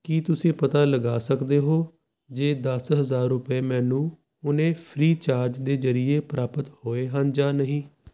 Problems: constant background noise